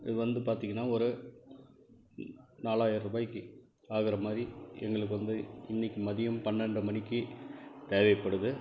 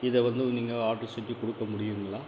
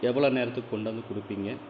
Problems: background sounds at intervals